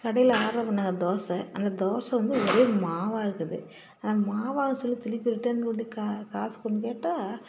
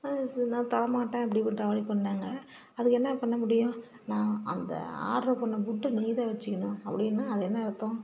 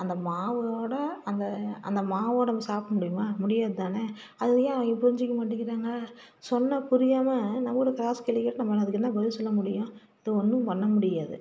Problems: low volume